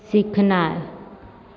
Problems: none marked